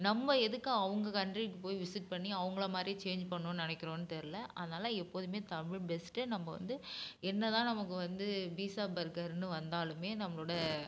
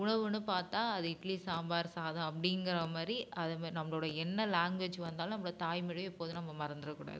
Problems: constant background noise